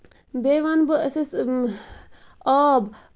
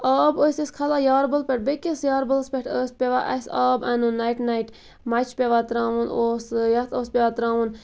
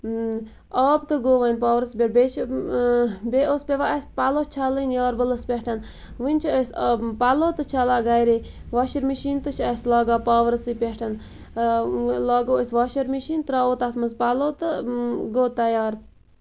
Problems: constant background noise